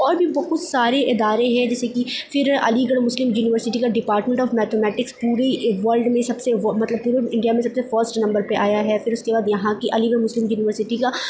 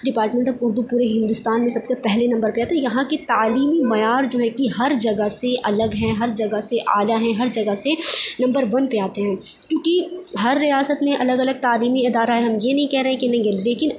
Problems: background sounds at intervals